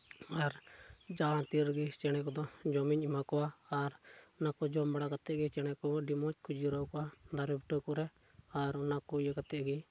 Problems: low volume